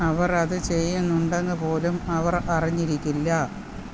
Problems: none marked